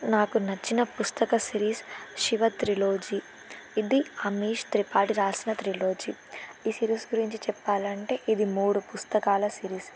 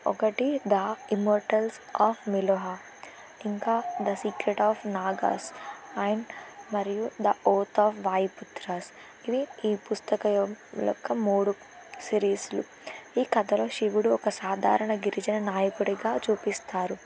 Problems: constant background noise